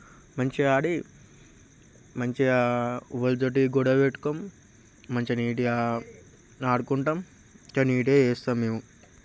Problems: constant background noise, background conversations at intervals